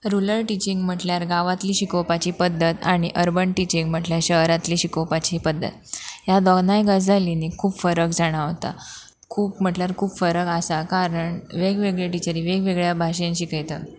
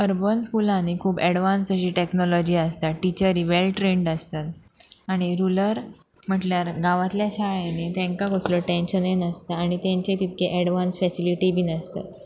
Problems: none marked